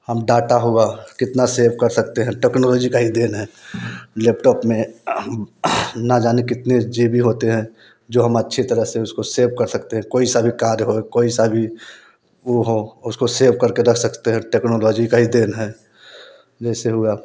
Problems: constant background noise